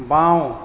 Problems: background sounds at intervals